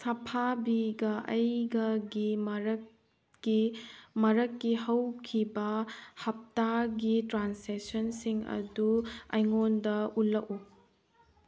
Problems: background sounds at intervals